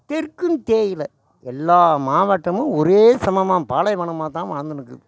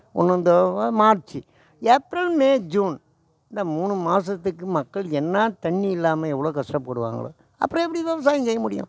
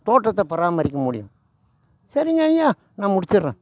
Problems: none marked